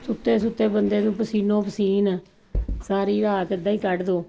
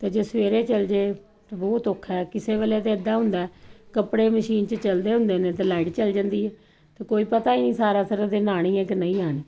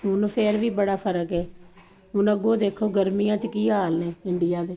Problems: constant background noise